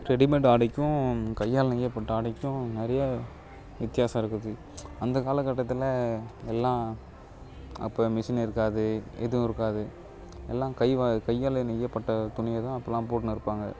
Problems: background conversations at intervals